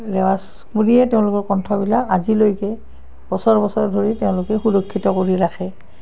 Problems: none marked